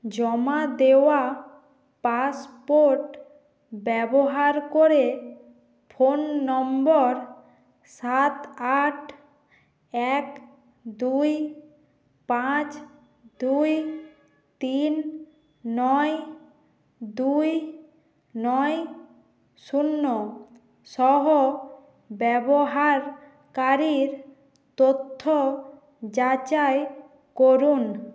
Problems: background sounds at intervals